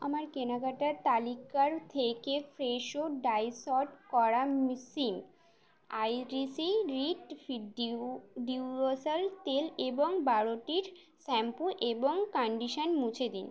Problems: none marked